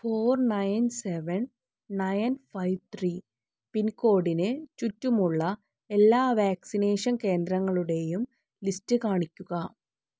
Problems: none marked